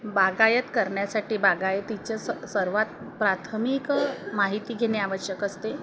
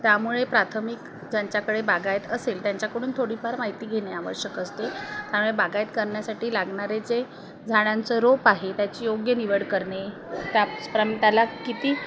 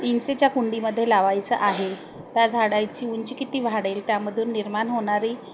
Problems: none marked